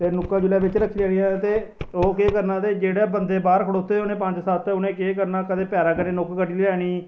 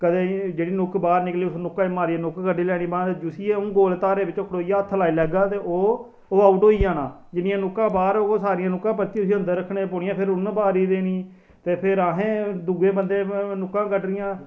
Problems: none marked